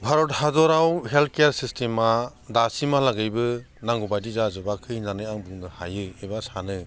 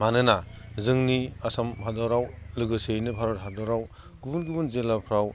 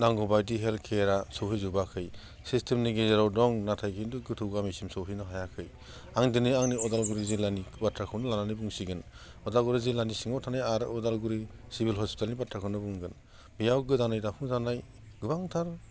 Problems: none marked